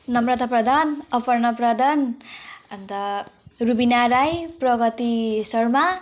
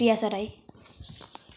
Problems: background conversations at intervals